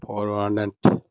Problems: none marked